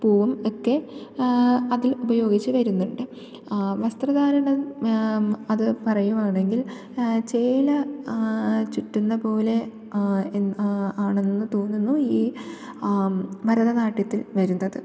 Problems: low volume